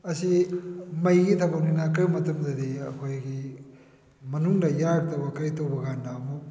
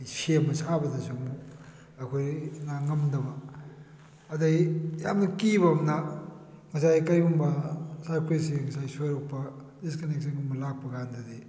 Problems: background sounds at intervals